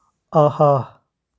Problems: none marked